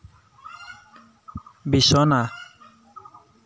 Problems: constant background noise